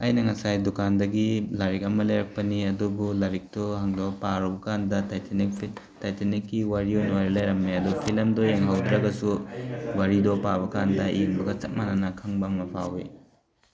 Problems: background conversations at intervals